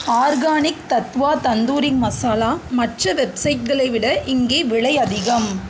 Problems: none marked